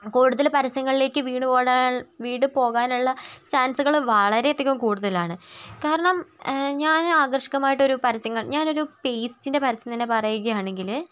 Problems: background sounds at intervals, continuous background conversations